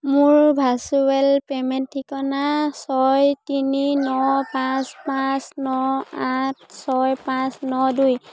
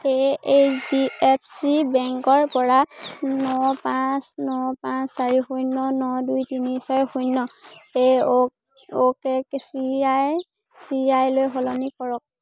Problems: constant background noise, continuous background conversations